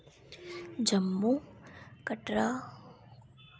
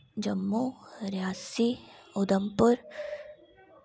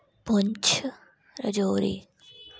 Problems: background sounds at intervals